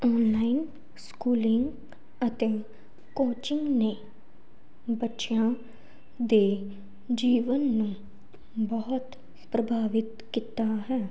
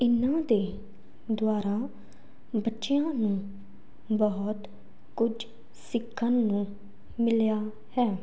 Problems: background sounds at intervals